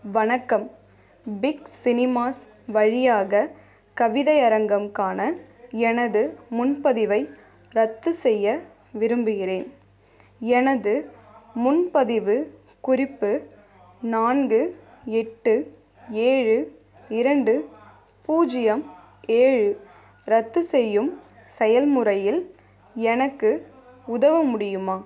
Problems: background sounds at intervals